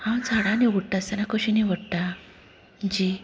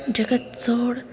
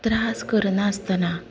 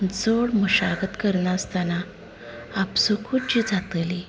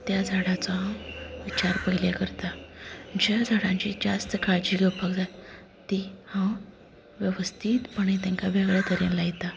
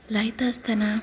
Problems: constant background noise, background conversations at intervals, low volume